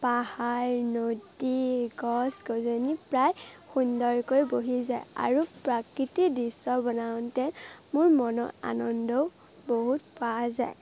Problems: constant background noise, background conversations at intervals